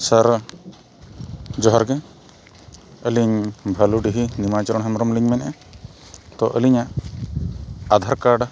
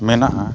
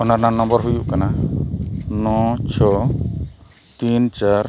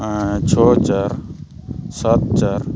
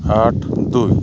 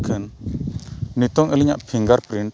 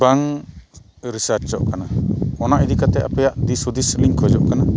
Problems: background sounds at intervals